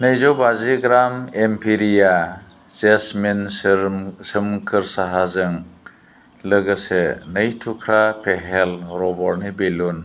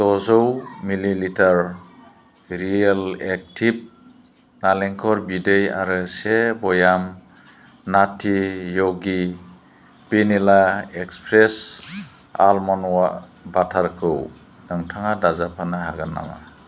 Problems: constant background noise